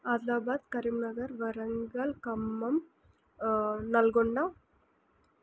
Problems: none marked